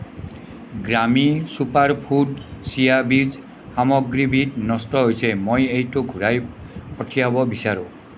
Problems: constant background noise